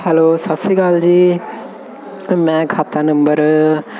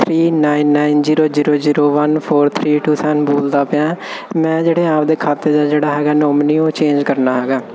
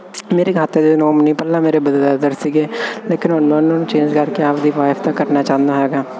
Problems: constant background noise